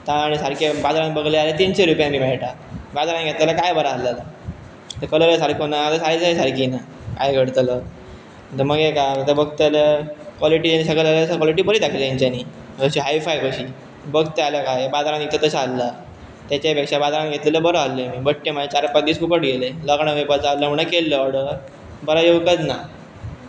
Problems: constant background noise